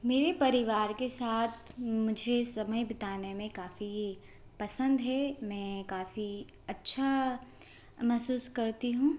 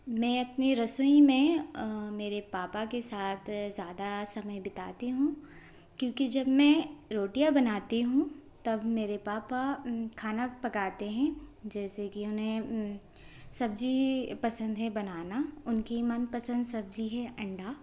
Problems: none marked